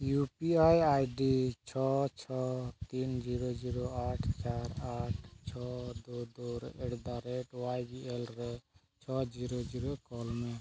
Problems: constant background noise, low volume